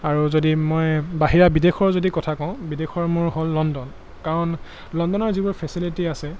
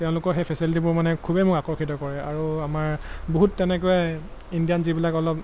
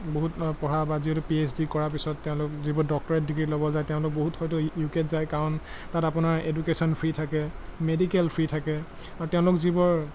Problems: constant background noise